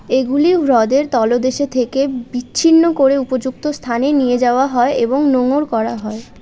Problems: none marked